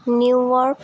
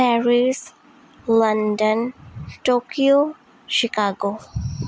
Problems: none marked